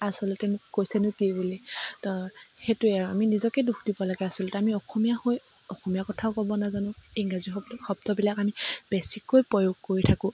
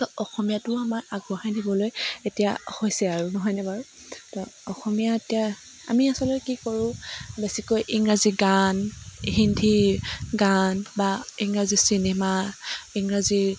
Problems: none marked